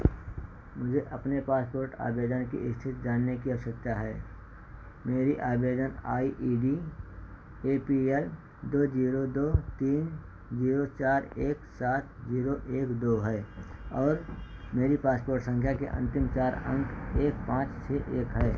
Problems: none marked